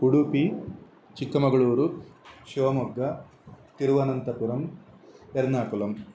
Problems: constant background noise